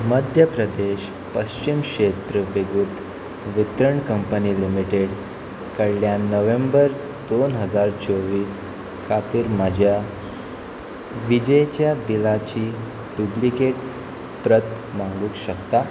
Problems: constant background noise